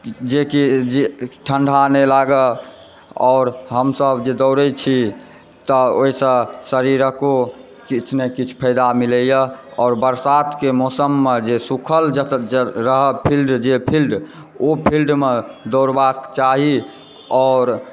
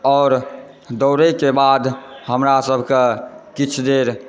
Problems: background sounds at intervals, background conversations at intervals